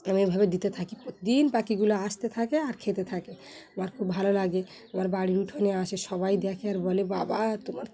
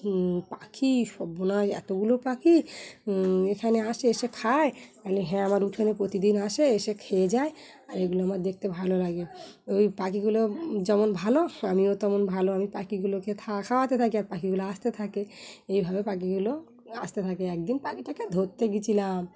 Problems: background sounds at intervals